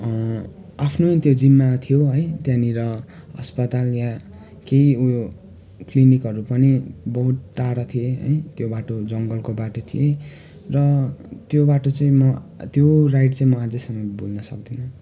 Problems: constant background noise, continuous background conversations